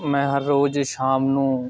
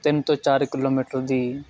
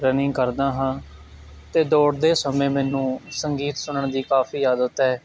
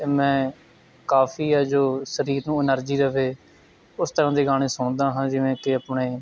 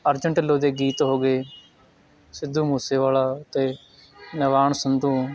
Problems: constant background noise